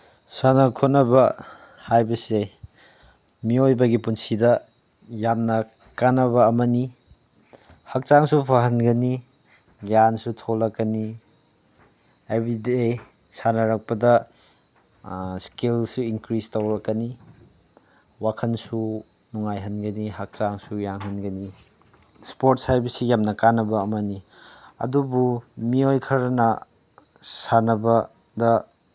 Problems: none marked